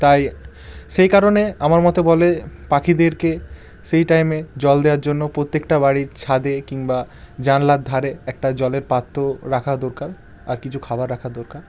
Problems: none marked